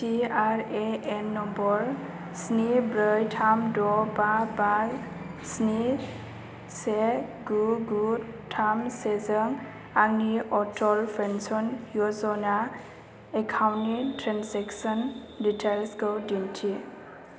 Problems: constant background noise